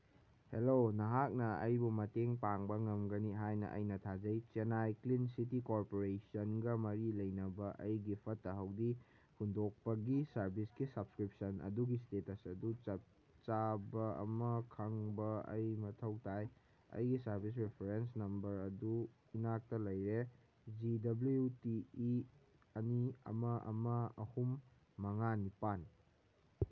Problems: none marked